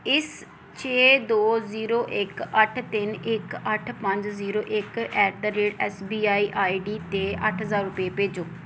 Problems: background sounds at intervals